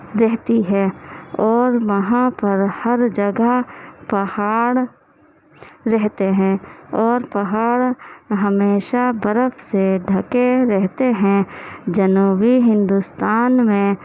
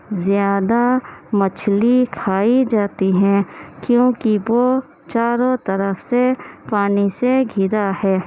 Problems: constant background noise, low volume